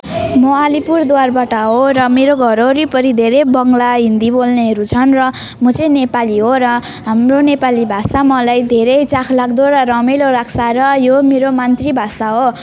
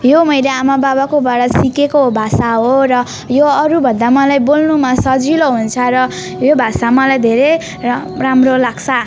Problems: none marked